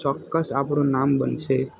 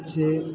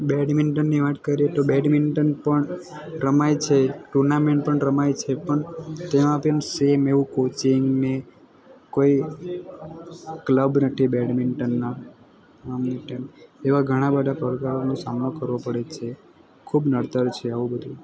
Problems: constant background noise